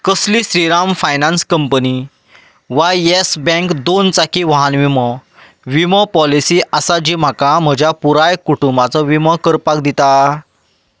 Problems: background sounds at intervals